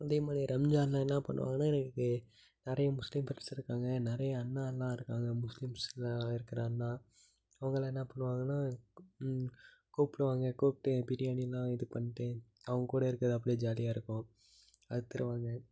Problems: low volume